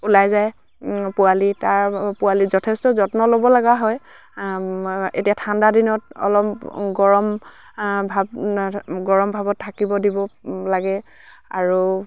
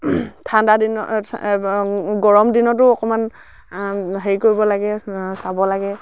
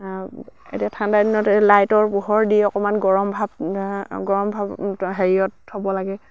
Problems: low volume